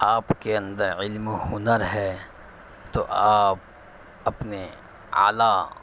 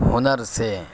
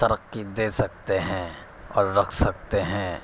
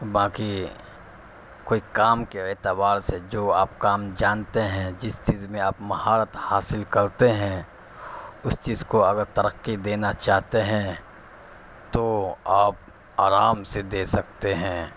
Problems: constant background noise